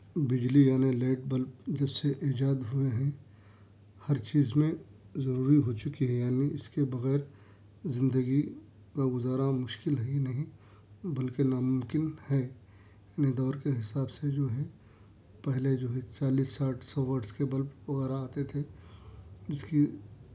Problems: none marked